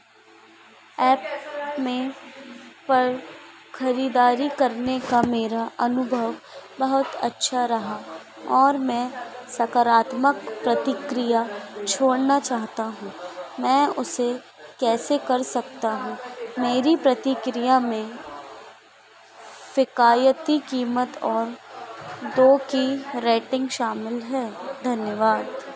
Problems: none marked